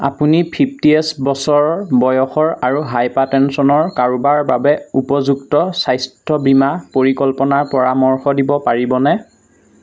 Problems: none marked